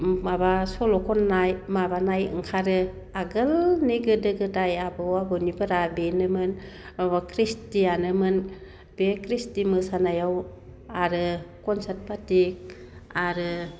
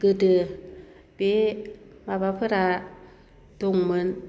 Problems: constant background noise